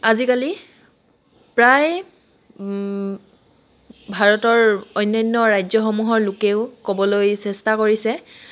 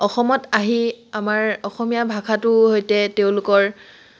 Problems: none marked